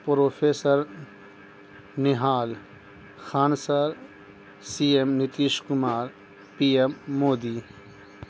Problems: constant background noise